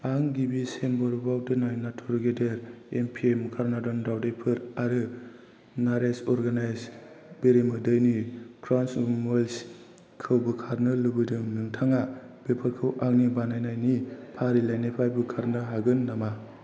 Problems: low volume